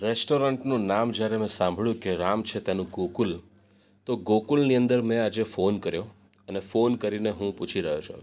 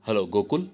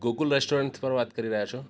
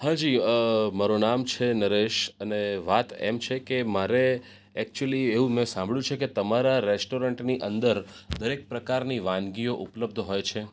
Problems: none marked